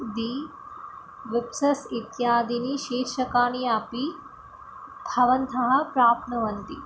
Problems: background sounds at intervals